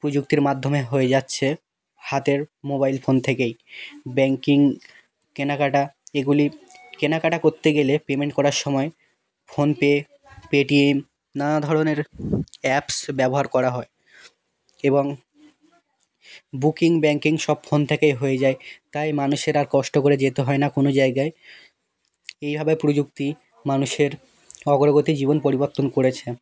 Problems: background sounds at intervals, background conversations at intervals